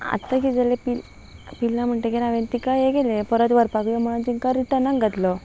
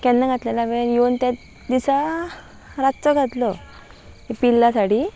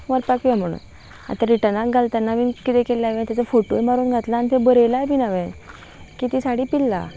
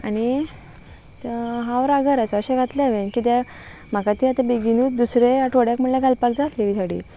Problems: background sounds at intervals